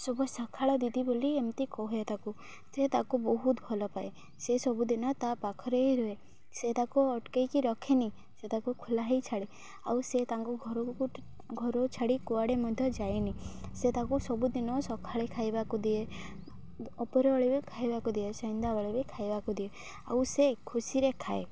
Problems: constant background noise